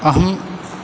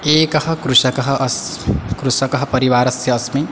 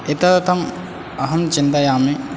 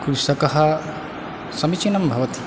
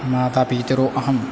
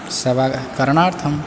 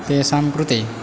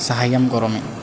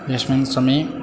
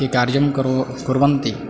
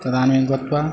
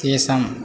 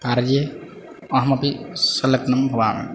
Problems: none marked